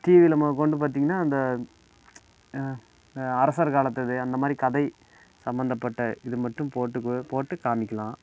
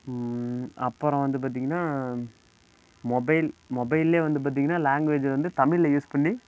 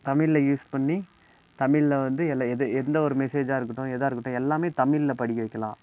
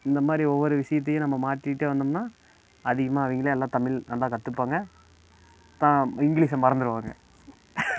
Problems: constant background noise